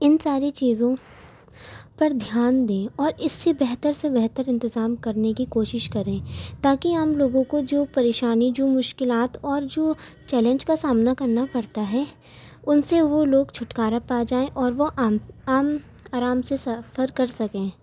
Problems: constant background noise